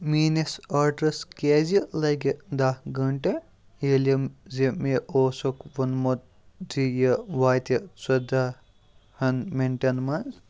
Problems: none marked